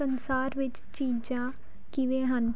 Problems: none marked